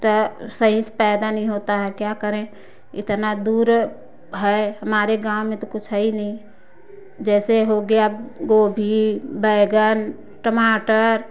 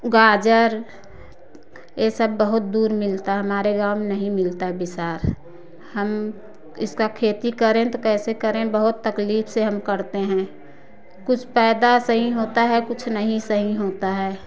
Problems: background sounds at intervals